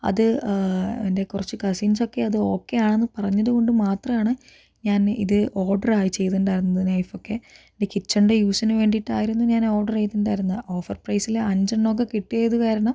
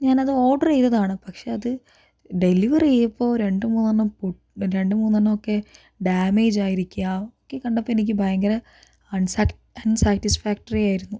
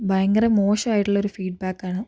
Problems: none marked